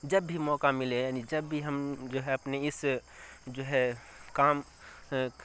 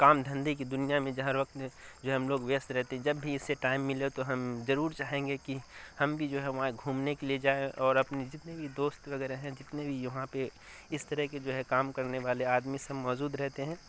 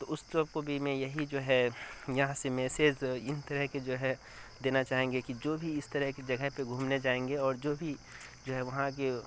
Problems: constant background noise